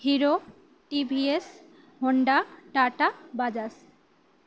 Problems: none marked